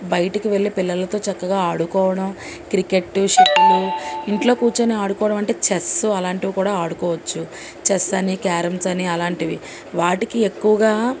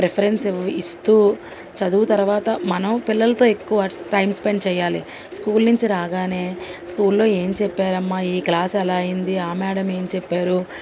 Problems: none marked